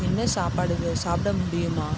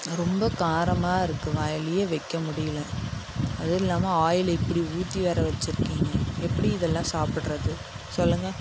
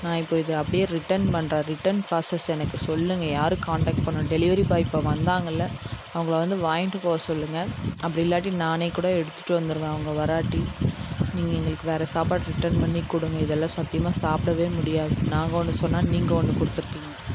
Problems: constant background noise